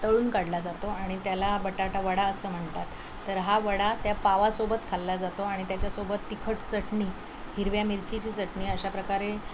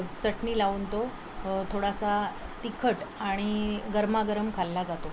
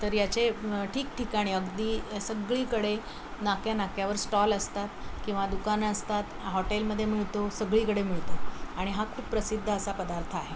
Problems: constant background noise